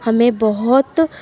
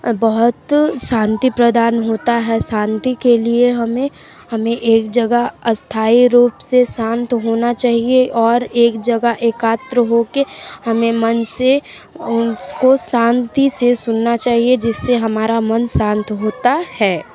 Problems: background sounds at intervals, continuous background conversations